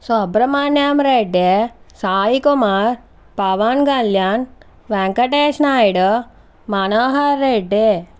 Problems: none marked